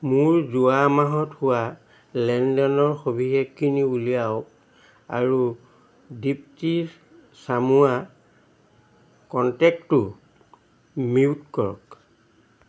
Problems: constant background noise